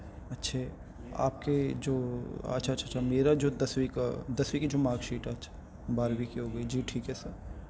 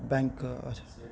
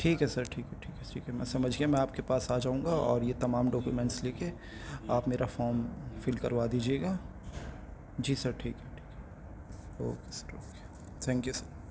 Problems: constant background noise